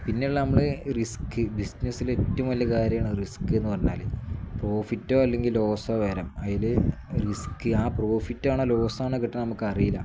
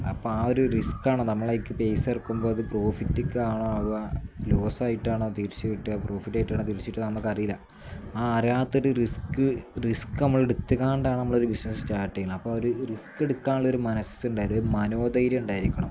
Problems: none marked